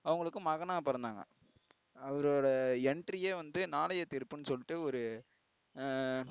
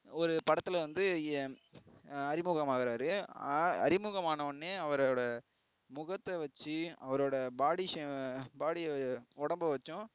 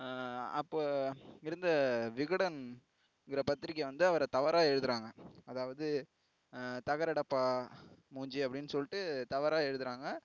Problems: low volume